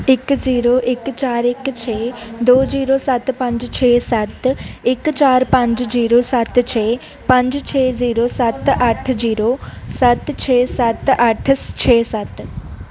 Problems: continuous background conversations